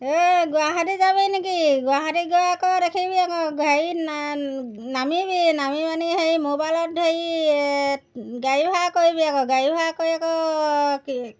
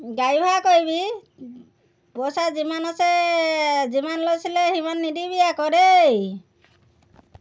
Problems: background sounds at intervals